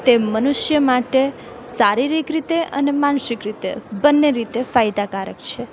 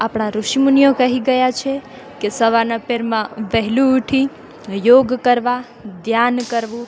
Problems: none marked